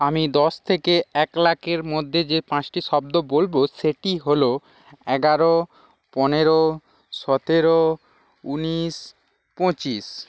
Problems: background sounds at intervals